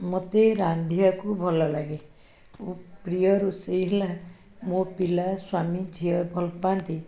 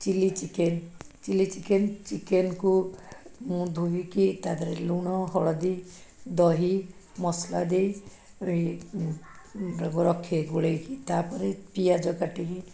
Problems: background sounds at intervals, background conversations at intervals